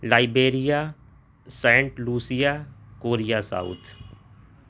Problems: constant background noise